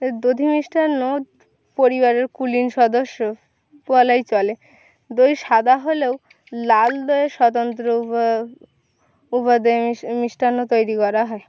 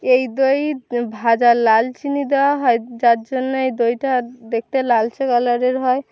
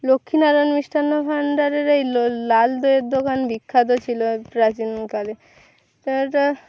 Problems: constant background noise